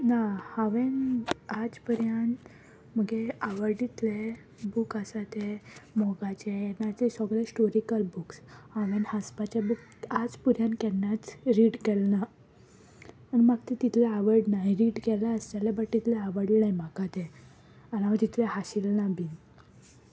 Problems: background sounds at intervals